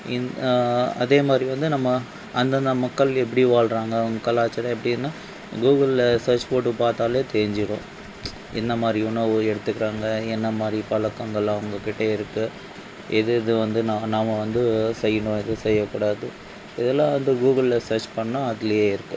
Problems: none marked